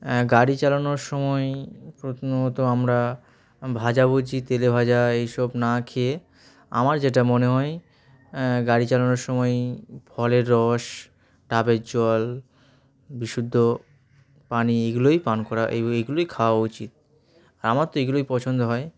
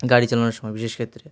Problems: background sounds at intervals